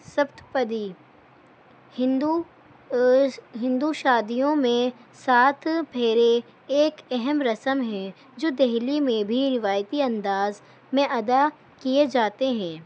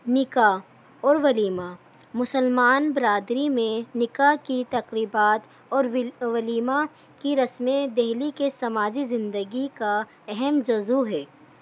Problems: constant background noise